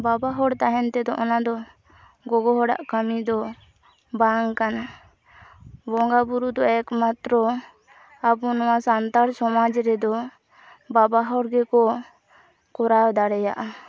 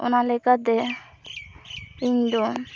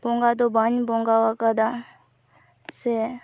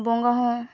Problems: constant background noise, background conversations at intervals